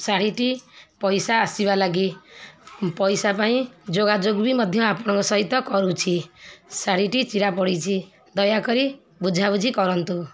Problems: constant background noise, continuous background conversations